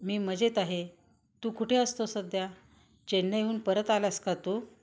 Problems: constant background noise